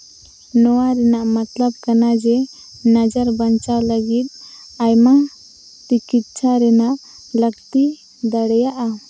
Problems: constant background noise